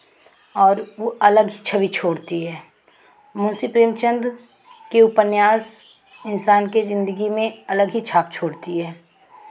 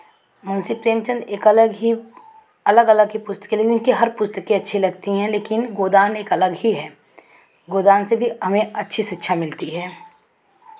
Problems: constant background noise